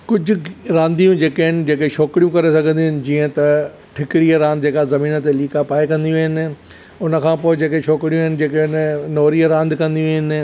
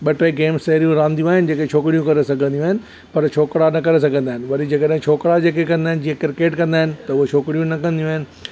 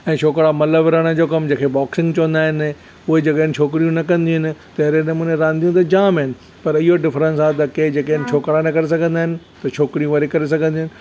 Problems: none marked